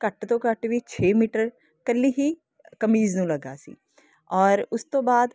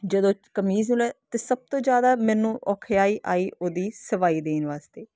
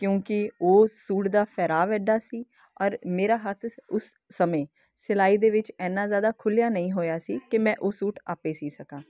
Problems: constant background noise